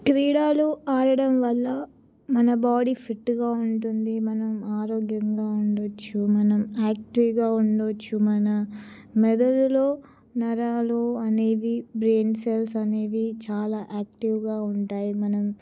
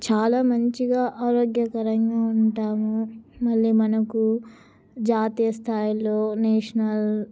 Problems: background sounds at intervals